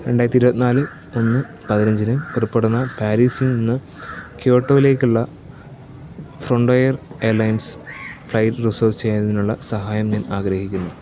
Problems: background sounds at intervals, low volume